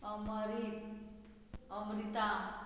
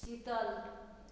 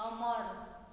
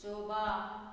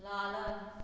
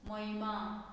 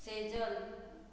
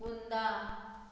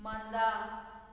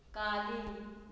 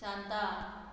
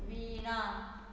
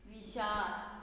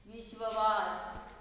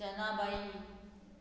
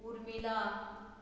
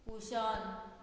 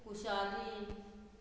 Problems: background sounds at intervals